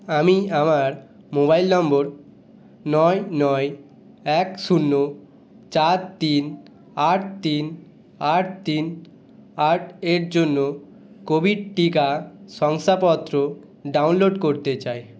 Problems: background sounds at intervals